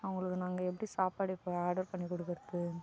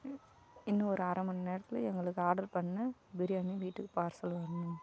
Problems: none marked